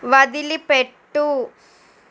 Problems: constant background noise